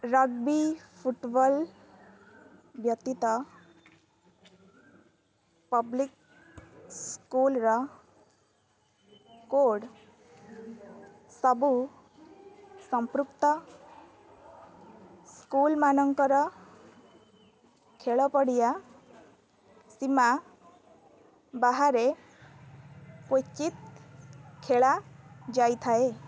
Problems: constant background noise